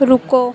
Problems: constant background noise